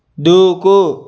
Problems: none marked